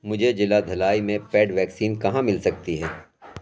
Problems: none marked